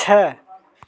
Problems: background sounds at intervals, continuous background conversations